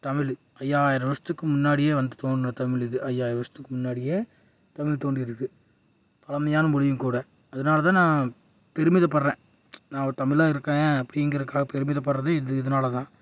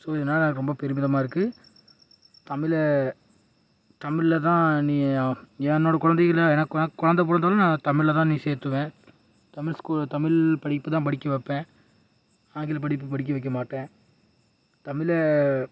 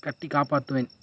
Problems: background sounds at intervals